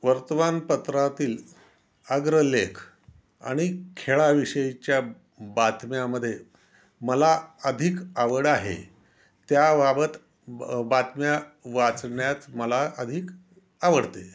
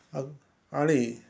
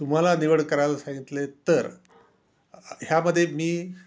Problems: constant background noise